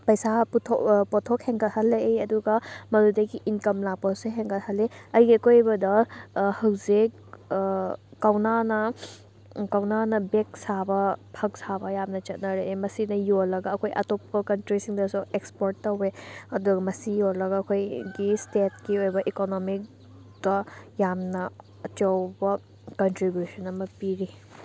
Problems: none marked